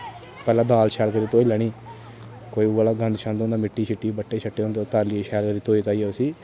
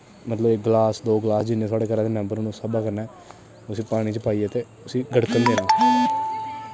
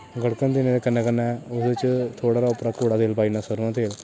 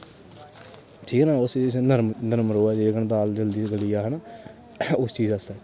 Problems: constant background noise